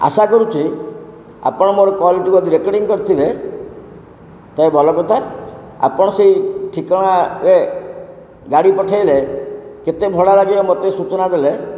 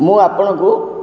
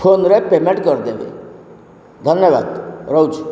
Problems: constant background noise